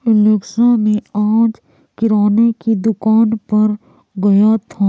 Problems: constant background noise